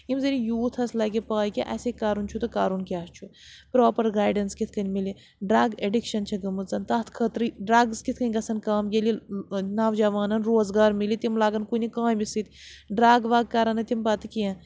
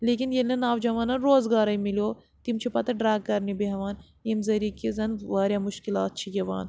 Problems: constant background noise